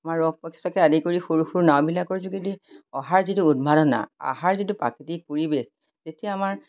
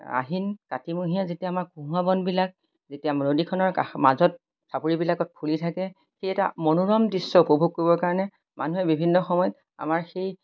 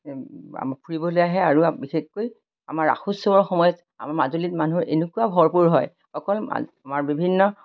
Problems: none marked